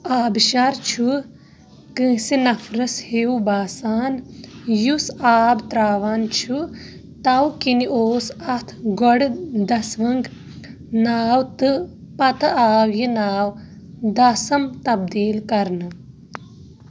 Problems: background sounds at intervals, background conversations at intervals